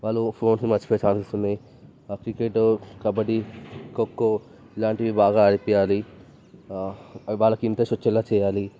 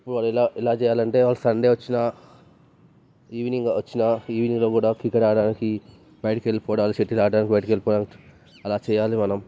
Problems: background sounds at intervals